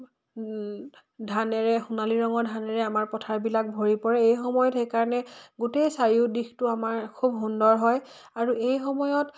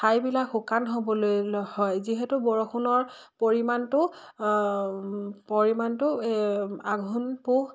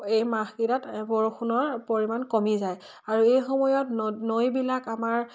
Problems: none marked